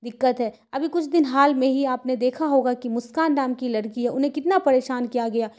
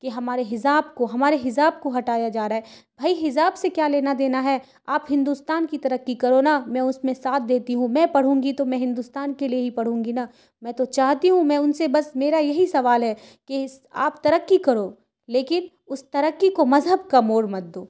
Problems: none marked